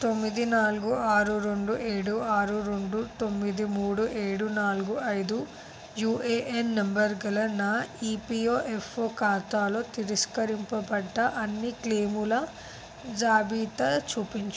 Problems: constant background noise